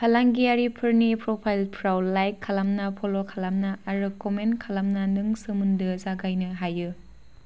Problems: none marked